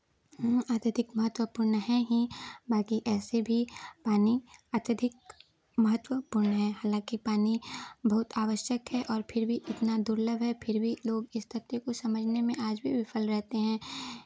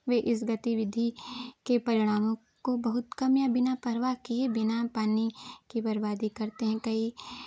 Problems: none marked